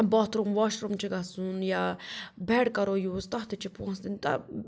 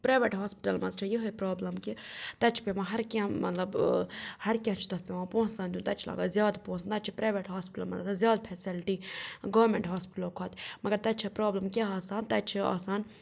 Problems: none marked